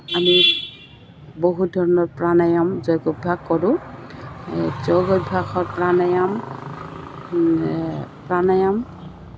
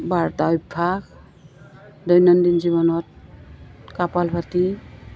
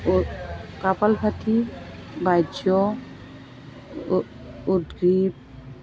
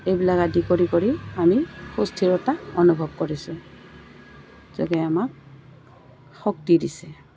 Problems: constant background noise, background conversations at intervals